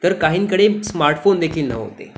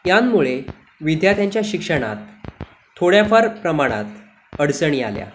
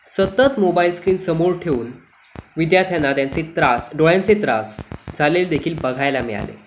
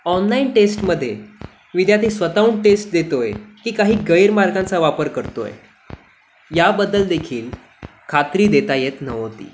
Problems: constant background noise